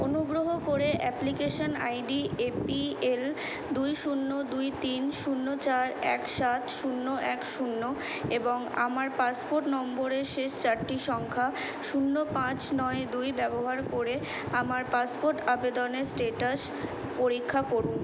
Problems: constant background noise